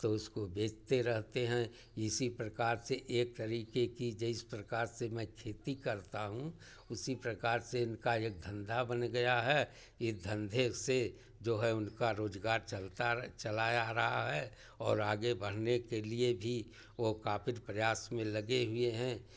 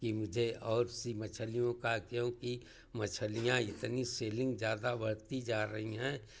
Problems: none marked